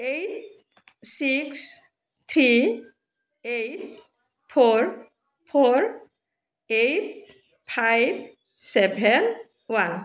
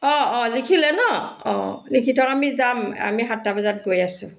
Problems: none marked